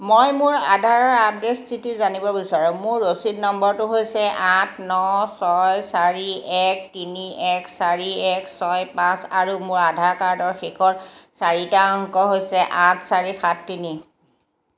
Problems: background sounds at intervals